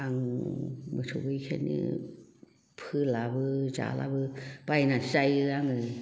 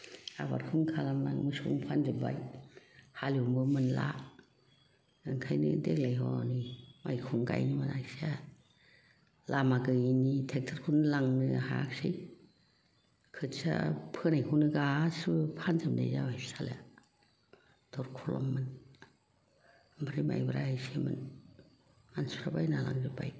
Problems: background sounds at intervals, background conversations at intervals